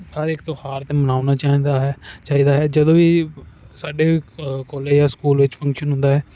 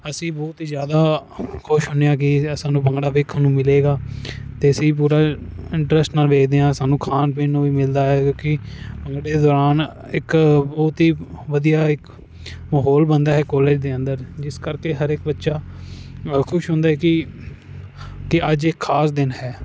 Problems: none marked